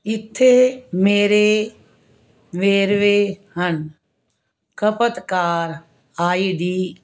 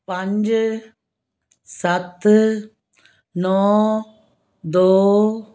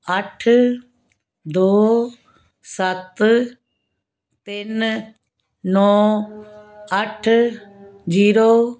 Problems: background sounds at intervals